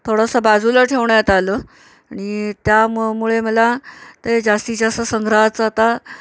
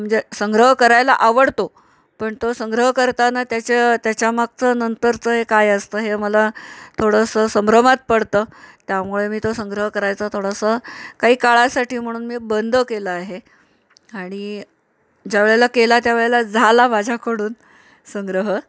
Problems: none marked